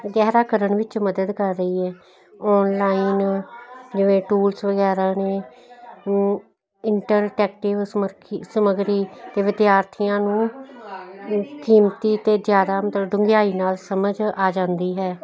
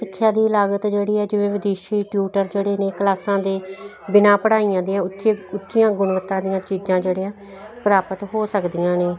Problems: constant background noise